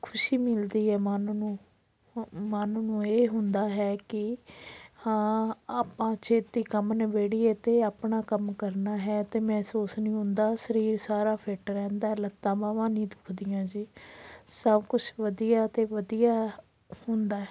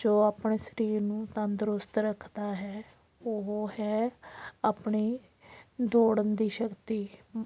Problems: background sounds at intervals